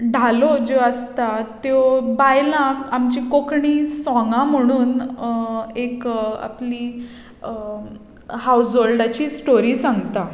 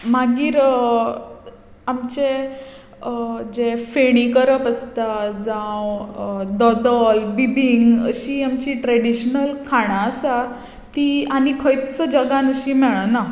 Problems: background sounds at intervals